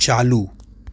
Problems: none marked